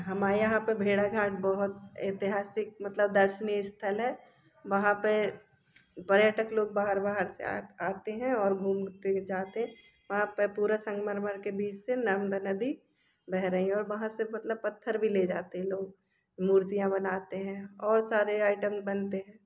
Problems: none marked